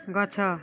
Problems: none marked